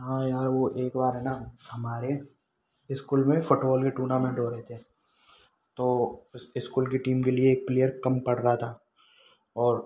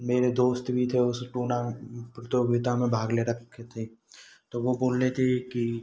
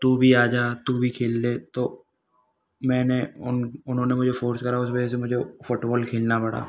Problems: background sounds at intervals